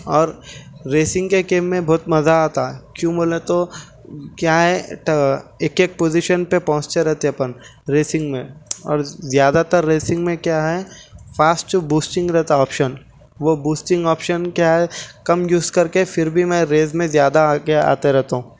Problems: constant background noise